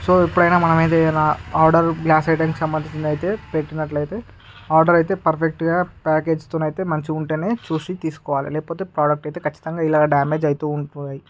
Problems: constant background noise